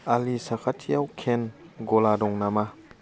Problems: constant background noise